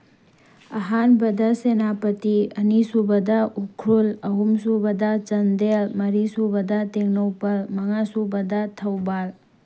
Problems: background sounds at intervals